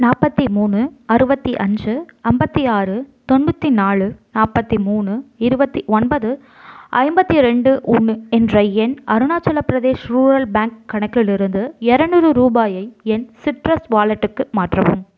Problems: none marked